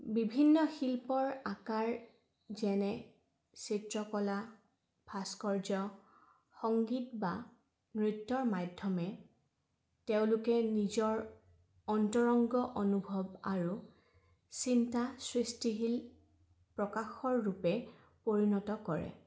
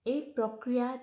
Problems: background sounds at intervals